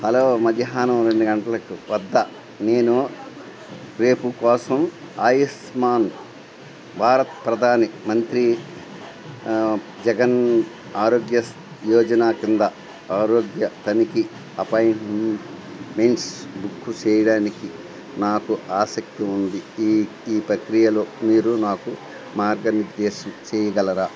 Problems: constant background noise